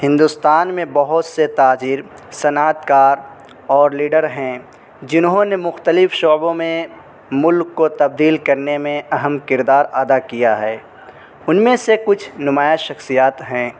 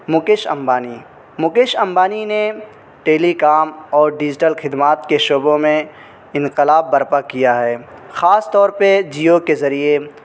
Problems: constant background noise